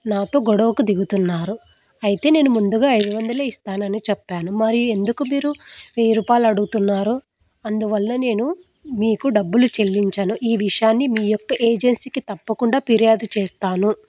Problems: constant background noise